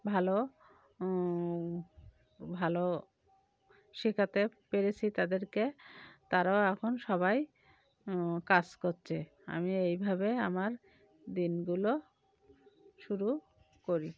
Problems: background sounds at intervals